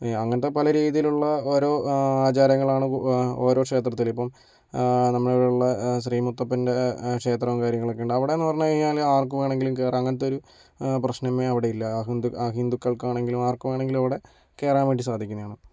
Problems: none marked